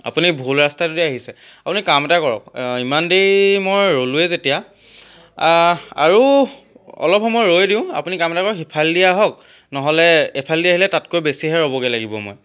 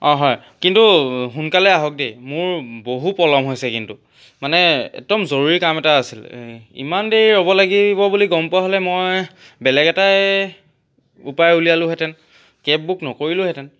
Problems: none marked